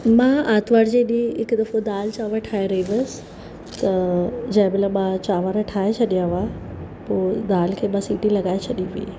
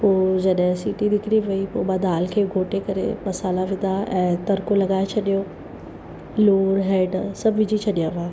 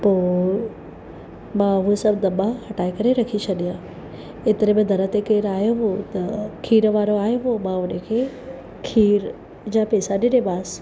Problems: constant background noise